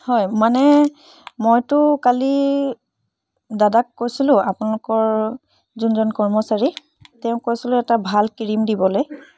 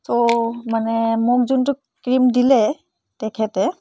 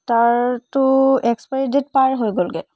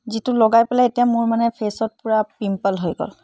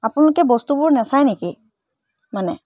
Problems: none marked